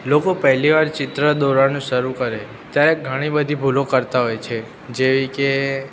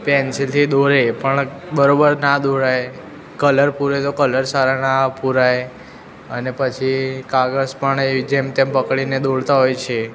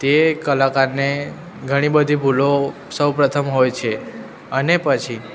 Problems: constant background noise